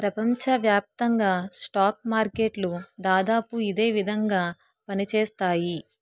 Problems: none marked